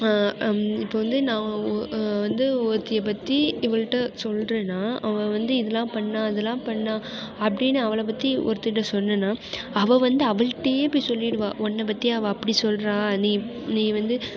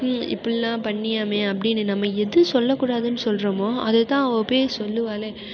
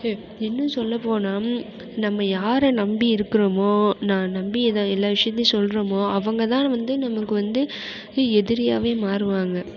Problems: constant background noise